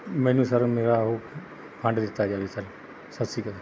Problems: background sounds at intervals